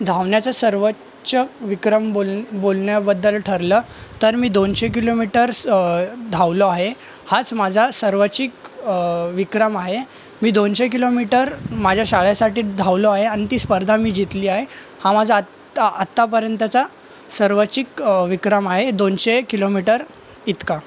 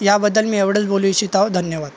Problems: constant background noise, background conversations at intervals